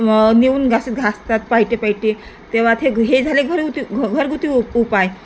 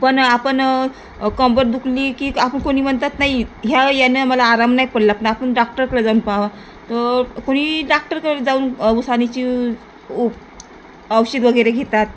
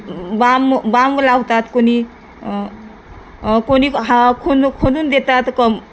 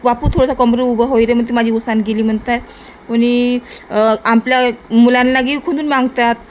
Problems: none marked